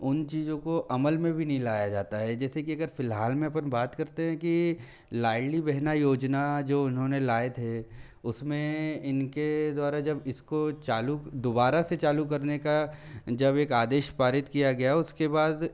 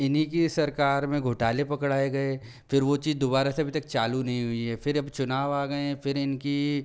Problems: low volume